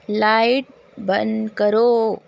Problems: constant background noise